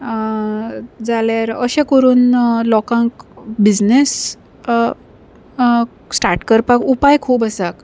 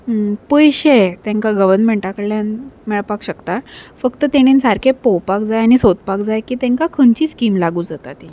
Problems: none marked